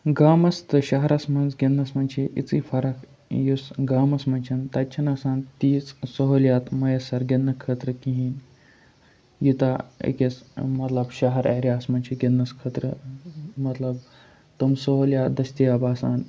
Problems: none marked